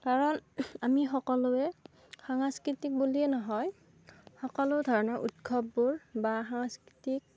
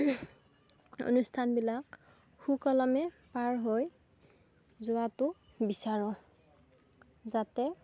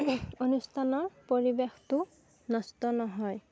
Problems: background sounds at intervals